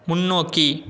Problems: none marked